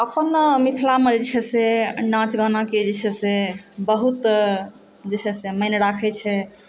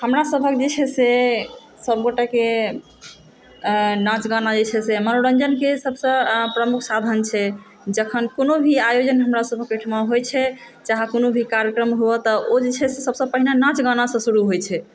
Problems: none marked